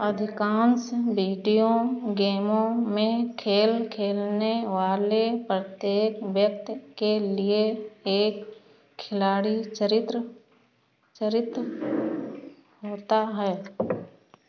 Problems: constant background noise